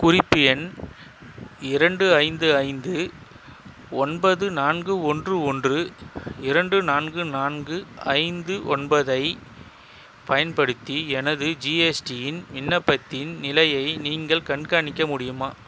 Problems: constant background noise